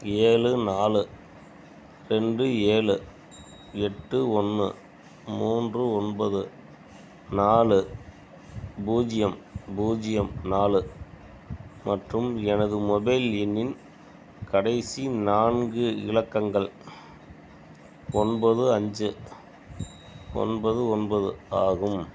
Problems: background sounds at intervals